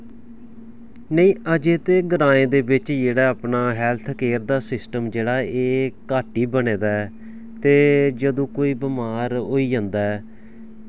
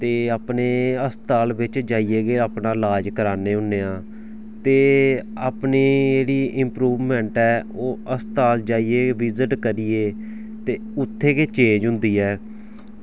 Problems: background sounds at intervals